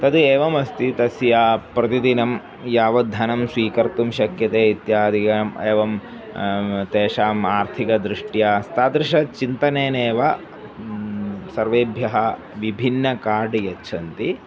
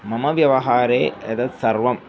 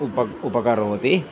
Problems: background sounds at intervals